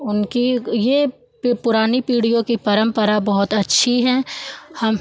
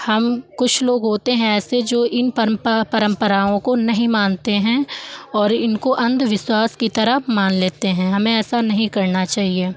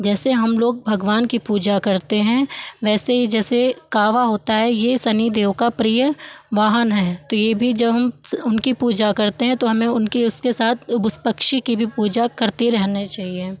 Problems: background sounds at intervals, background conversations at intervals